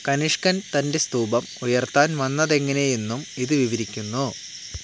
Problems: none marked